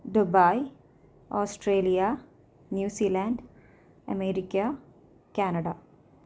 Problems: low volume